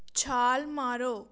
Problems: none marked